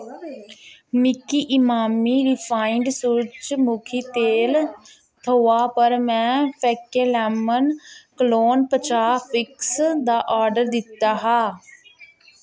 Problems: constant background noise